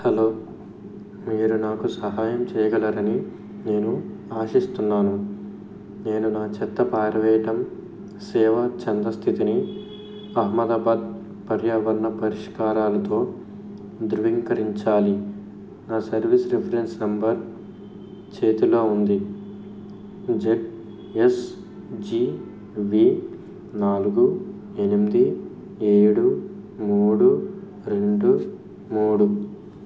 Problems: background sounds at intervals